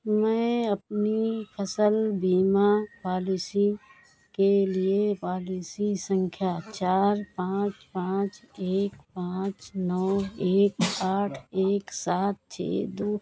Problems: constant background noise, continuous background conversations